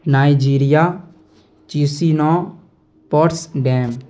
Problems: none marked